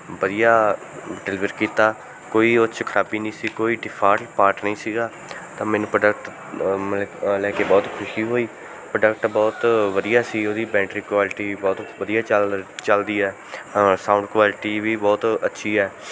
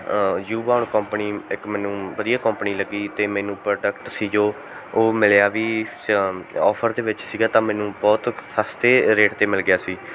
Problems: background sounds at intervals, background conversations at intervals